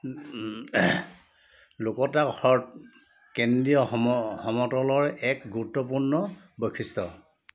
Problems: constant background noise